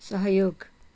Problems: none marked